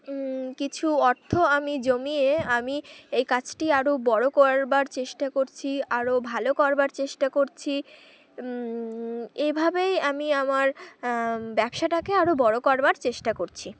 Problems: background sounds at intervals, background conversations at intervals